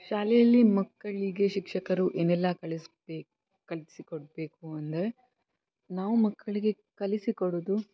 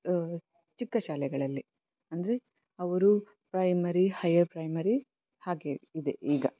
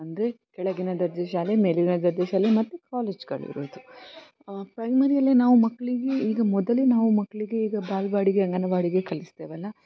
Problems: constant background noise